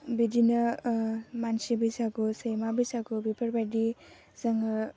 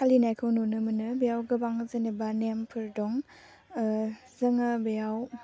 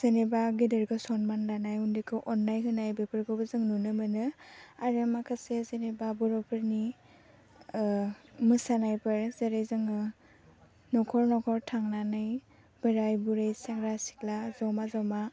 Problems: none marked